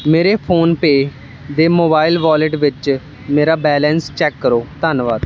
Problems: constant background noise